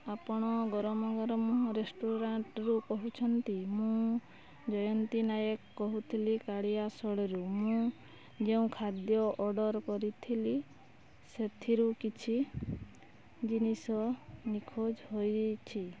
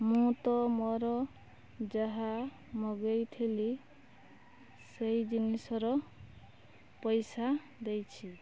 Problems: low volume